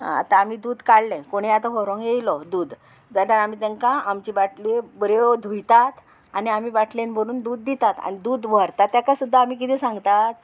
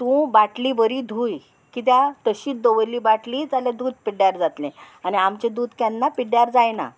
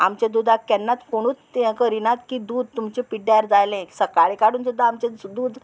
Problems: constant background noise